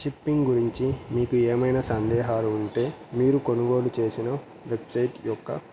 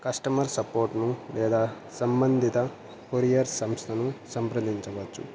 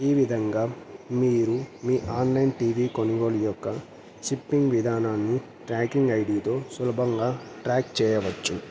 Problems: none marked